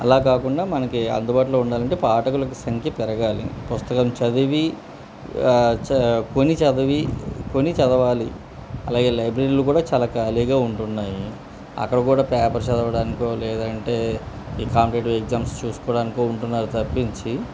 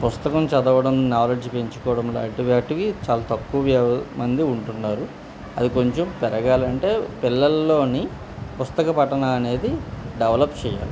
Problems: constant background noise, background conversations at intervals